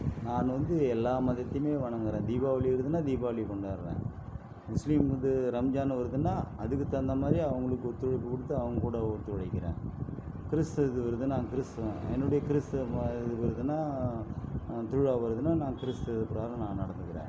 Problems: constant background noise, low volume